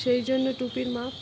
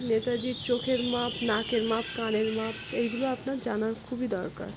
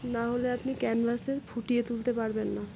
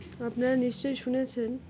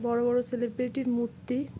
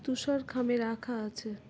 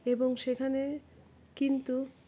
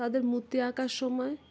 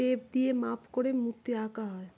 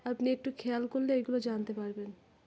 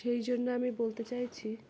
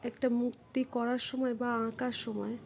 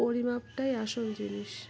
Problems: background sounds at intervals